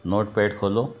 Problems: background sounds at intervals